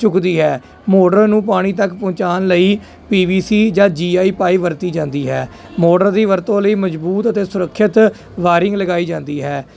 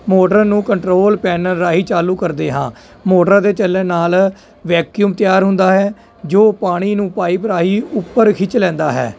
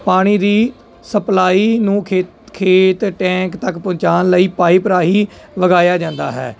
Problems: none marked